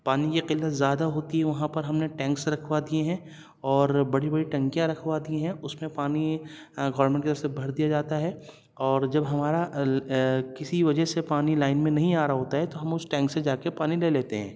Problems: none marked